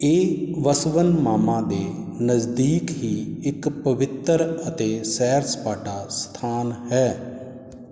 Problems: none marked